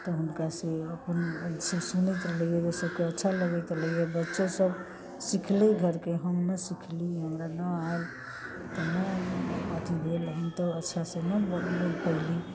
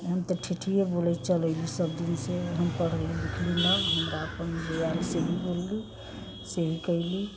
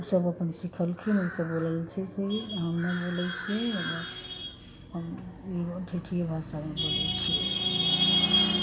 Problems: constant background noise